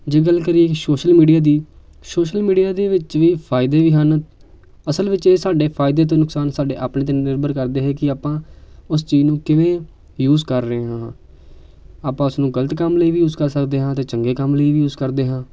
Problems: none marked